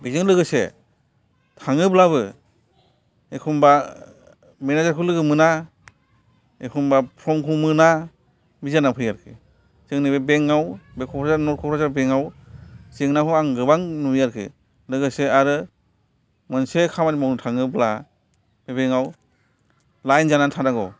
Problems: background sounds at intervals